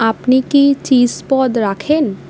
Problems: none marked